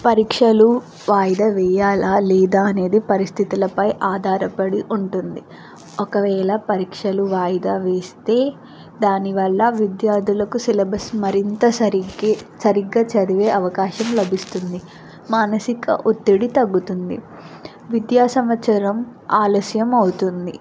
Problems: constant background noise